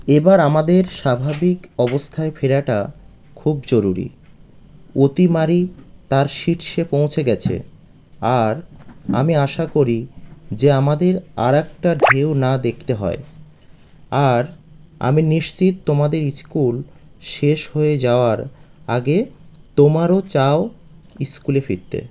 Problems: none marked